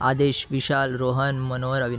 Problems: continuous background conversations